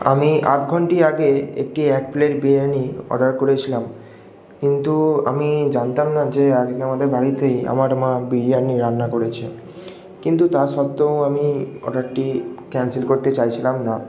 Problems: echo